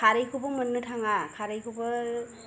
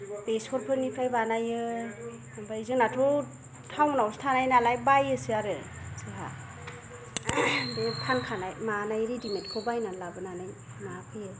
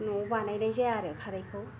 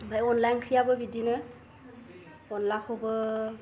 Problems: low volume